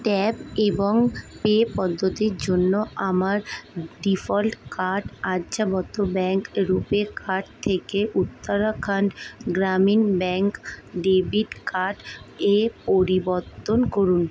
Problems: none marked